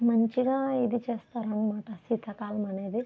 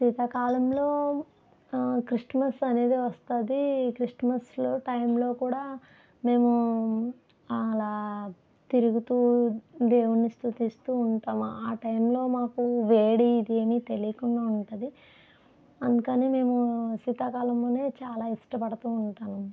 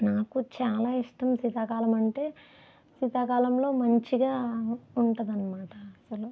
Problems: none marked